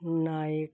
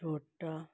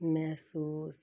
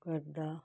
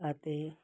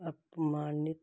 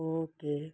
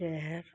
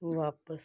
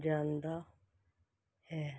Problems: none marked